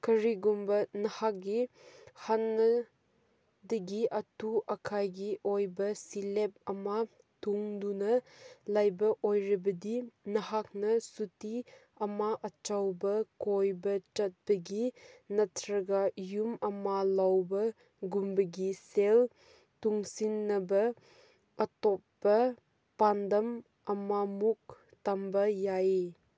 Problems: none marked